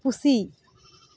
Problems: background sounds at intervals